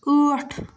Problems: none marked